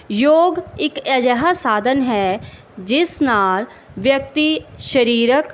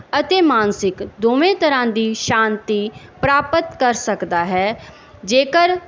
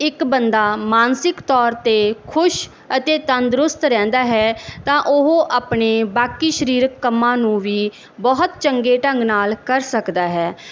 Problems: background sounds at intervals